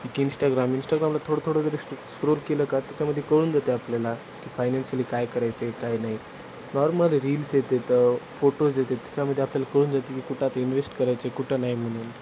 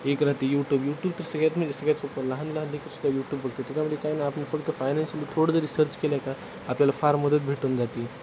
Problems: constant background noise